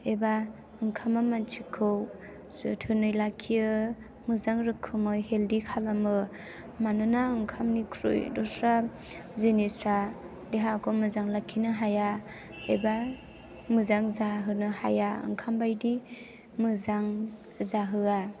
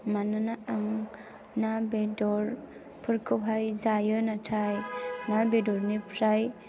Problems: background sounds at intervals